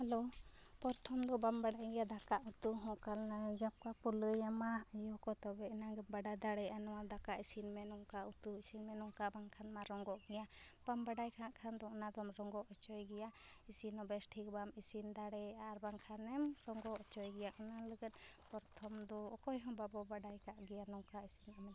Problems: low volume